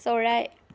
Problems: background sounds at intervals